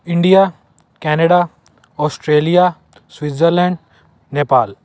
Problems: constant background noise